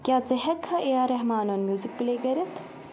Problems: constant background noise